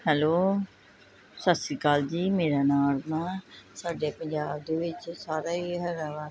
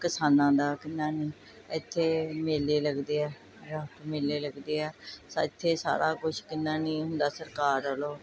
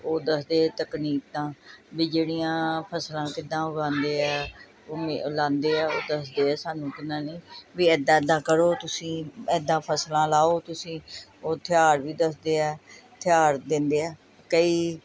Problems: none marked